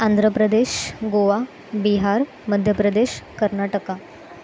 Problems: constant background noise